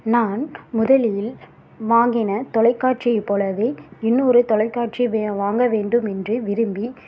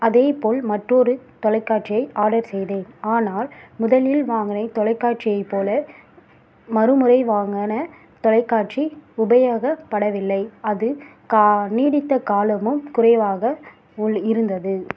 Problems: background sounds at intervals